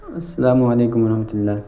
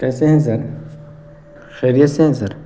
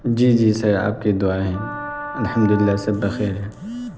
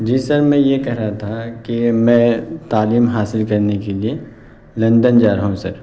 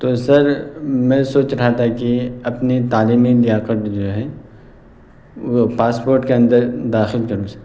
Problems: constant background noise